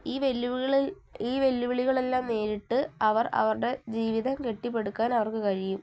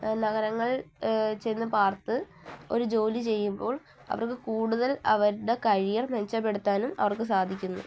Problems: low volume